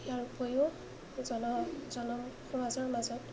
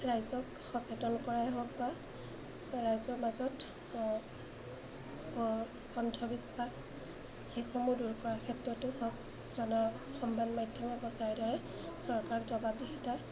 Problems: constant background noise, low volume